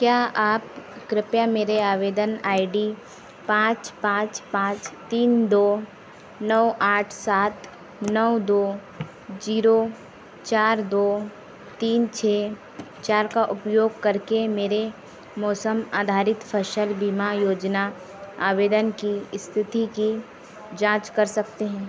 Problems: none marked